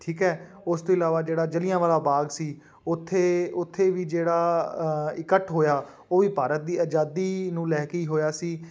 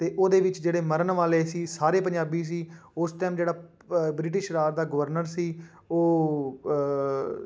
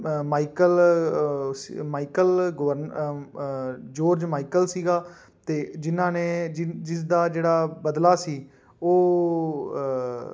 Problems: background sounds at intervals